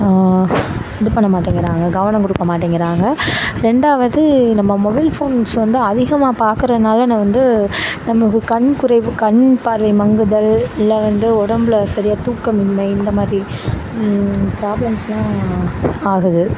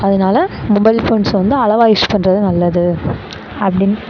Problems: constant background noise